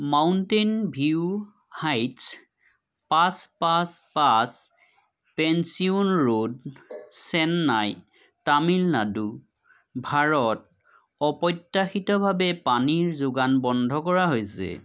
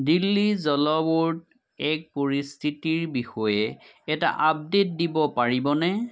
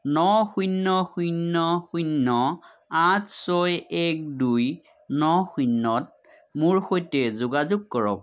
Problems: low volume